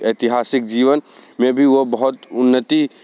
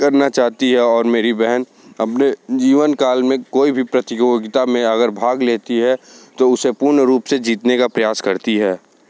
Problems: none marked